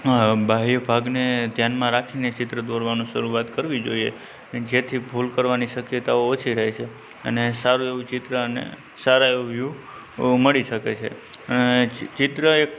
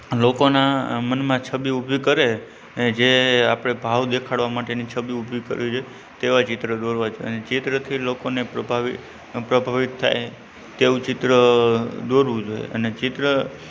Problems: constant background noise, low volume